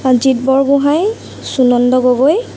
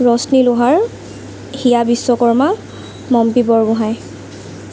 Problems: constant background noise